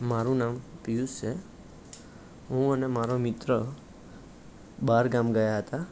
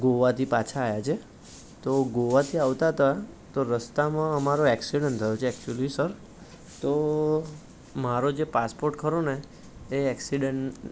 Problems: none marked